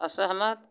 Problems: none marked